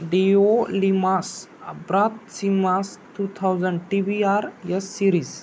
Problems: none marked